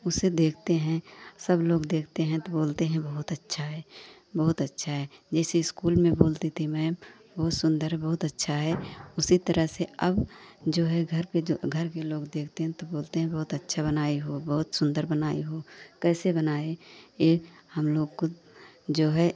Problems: none marked